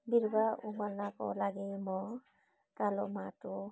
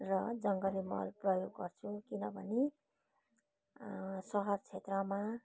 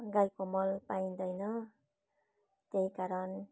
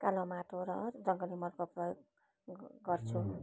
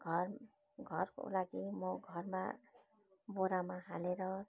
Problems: background sounds at intervals